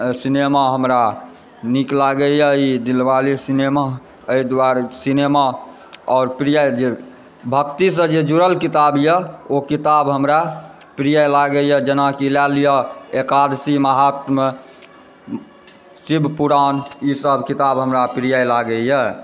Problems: background conversations at intervals